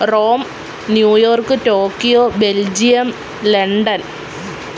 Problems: constant background noise